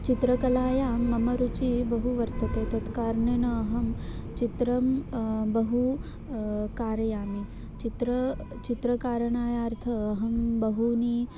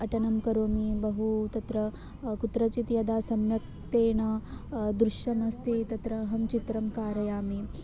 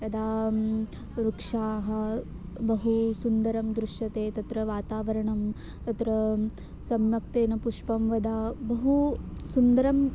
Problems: constant background noise